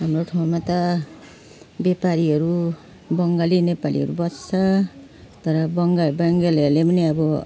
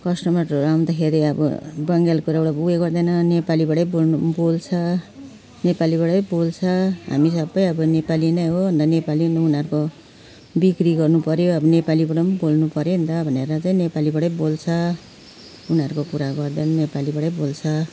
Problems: constant background noise